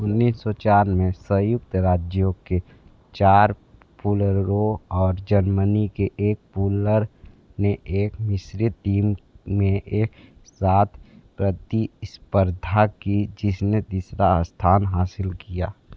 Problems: constant background noise